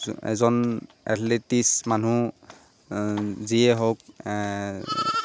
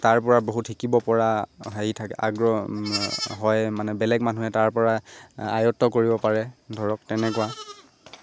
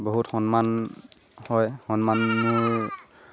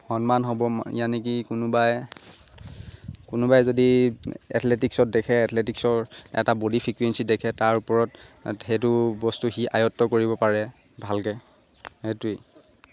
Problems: constant background noise